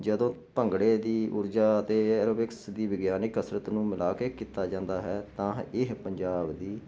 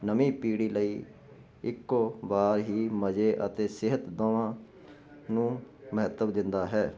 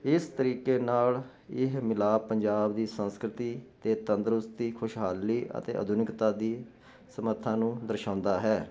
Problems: constant background noise